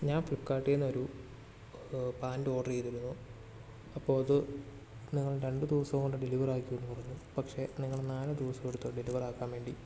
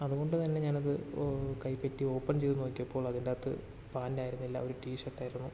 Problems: constant background noise, low volume